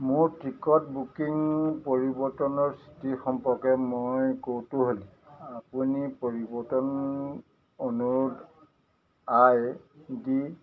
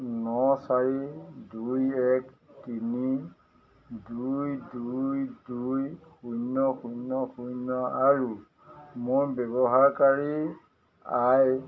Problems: none marked